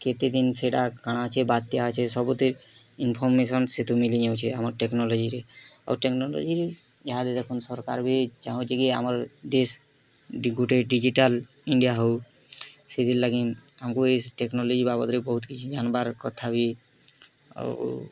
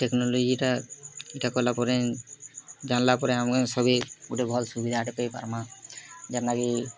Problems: constant background noise, continuous background conversations